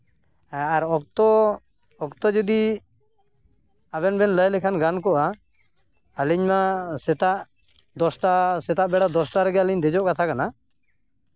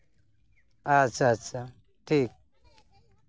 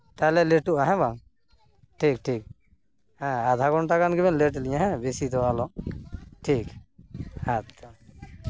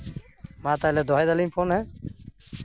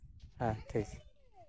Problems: background sounds at intervals